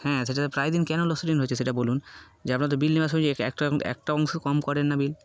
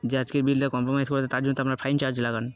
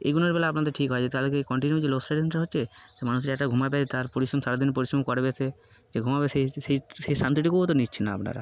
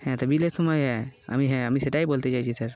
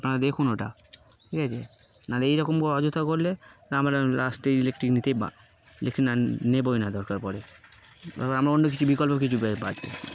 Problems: constant background noise